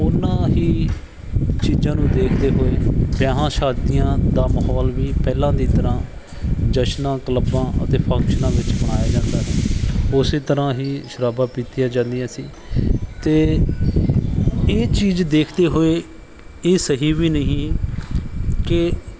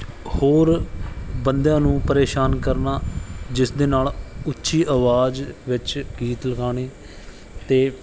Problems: background sounds at intervals